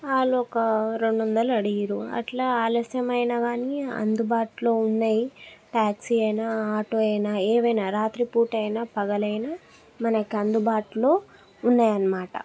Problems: background conversations at intervals